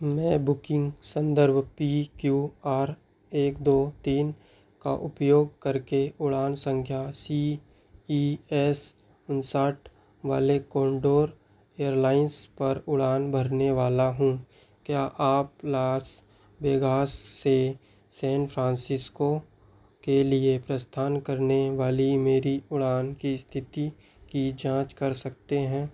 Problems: none marked